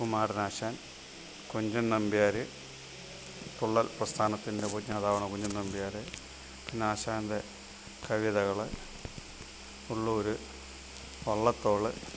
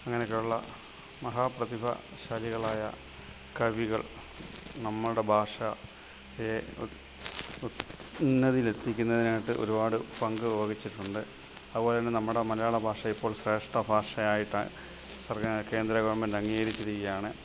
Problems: constant background noise, low volume